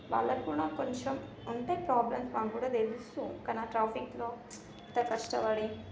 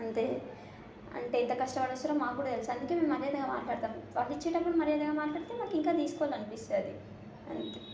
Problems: constant background noise, continuous background conversations, low volume